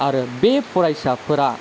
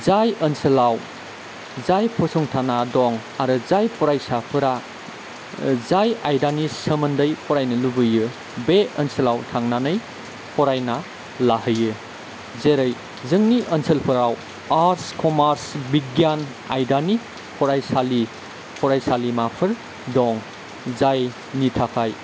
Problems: constant background noise, low volume